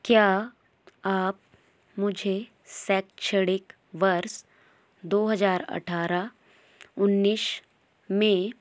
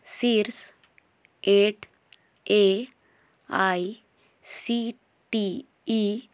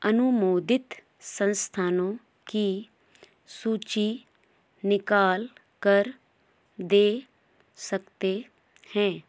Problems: constant background noise